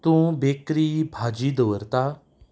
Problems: background sounds at intervals